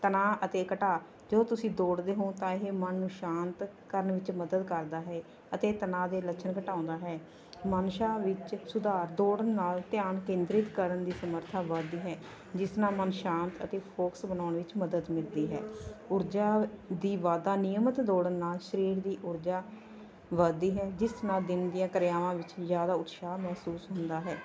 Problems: background conversations at intervals